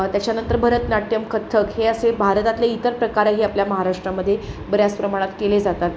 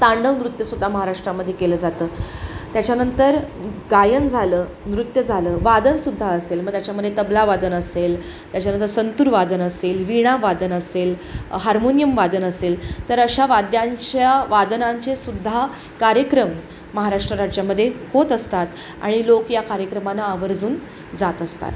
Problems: none marked